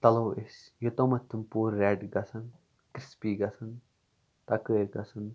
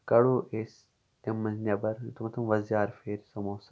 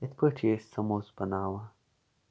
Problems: background sounds at intervals